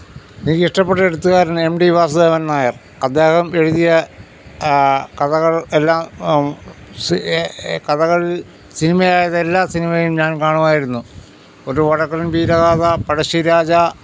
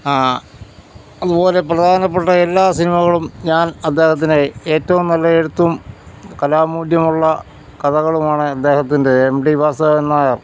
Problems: background conversations at intervals